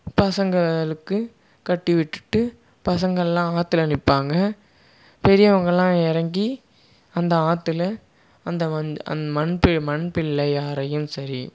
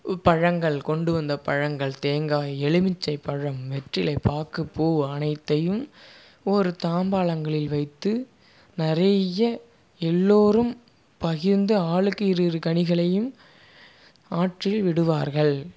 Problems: none marked